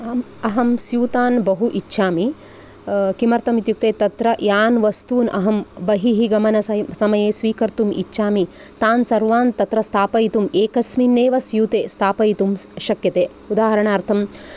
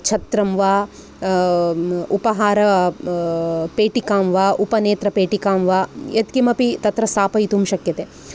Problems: none marked